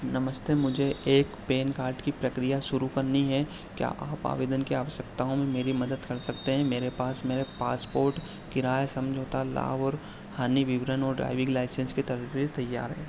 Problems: constant background noise